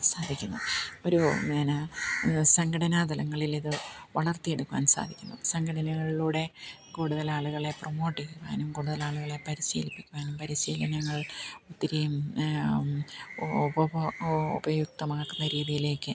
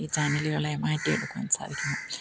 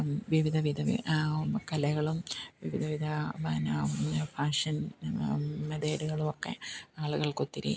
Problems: background sounds at intervals, low volume